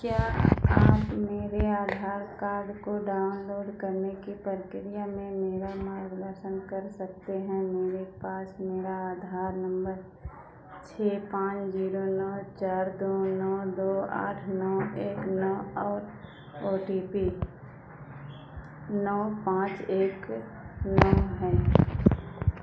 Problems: constant background noise, echo